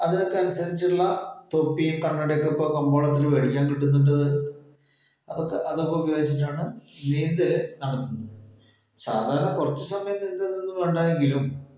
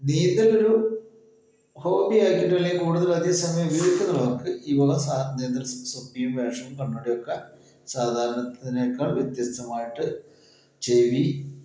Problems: echo